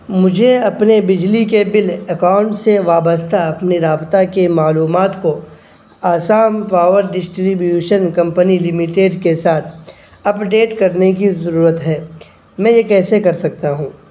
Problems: constant background noise